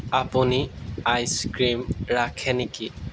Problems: background sounds at intervals